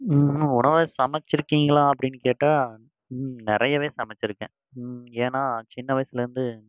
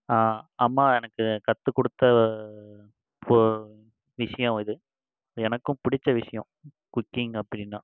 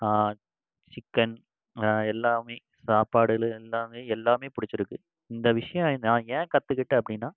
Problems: background sounds at intervals